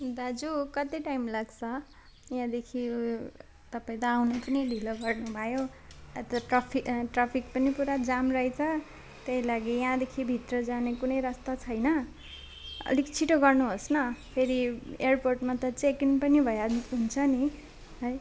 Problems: constant background noise